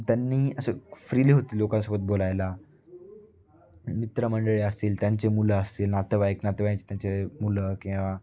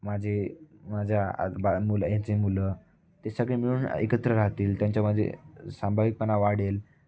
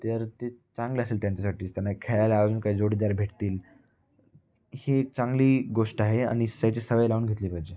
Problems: none marked